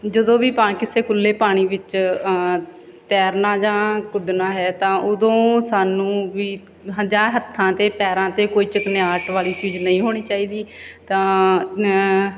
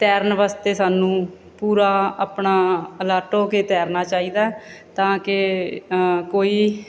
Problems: none marked